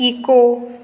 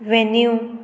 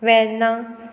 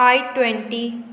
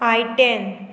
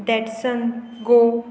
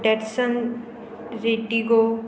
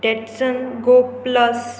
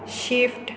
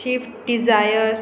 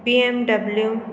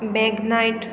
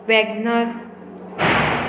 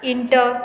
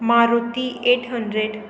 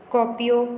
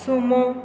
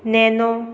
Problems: constant background noise